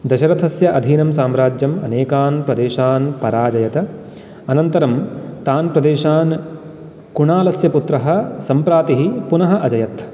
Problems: constant background noise